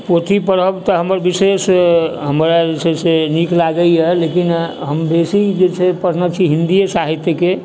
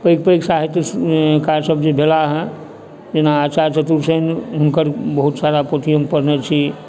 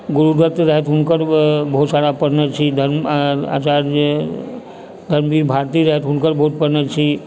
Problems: background sounds at intervals